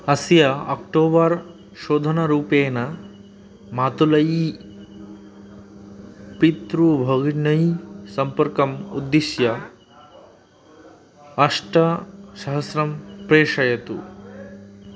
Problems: background sounds at intervals